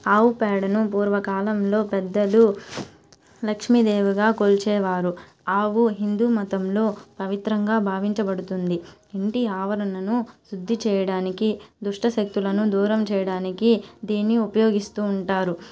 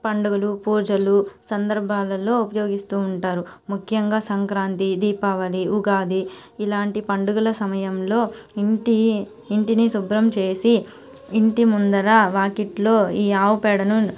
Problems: constant background noise